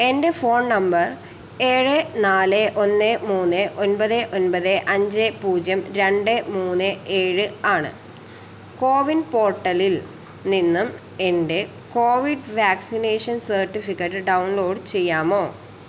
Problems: constant background noise